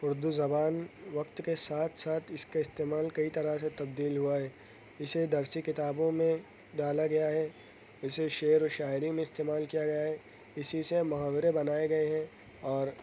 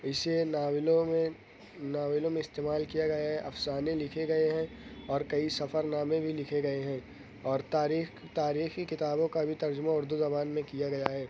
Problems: none marked